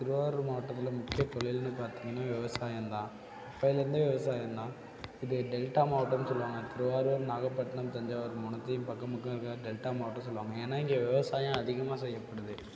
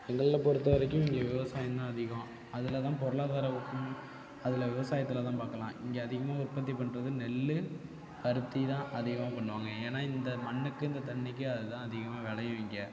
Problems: constant background noise, low volume